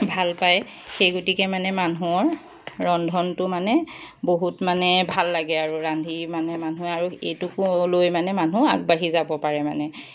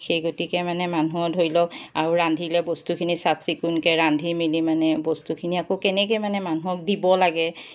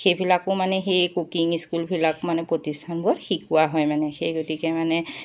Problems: background sounds at intervals